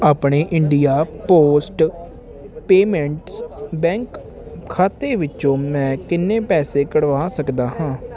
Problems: none marked